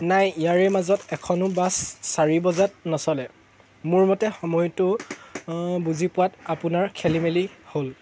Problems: constant background noise